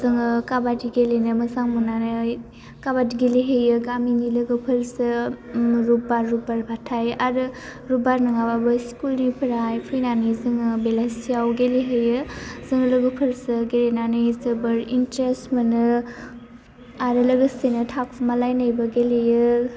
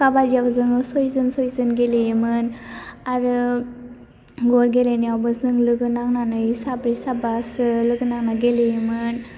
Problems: constant background noise